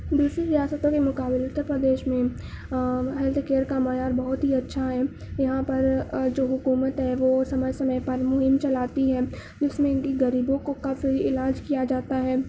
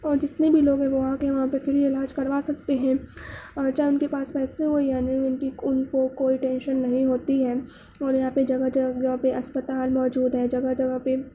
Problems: background sounds at intervals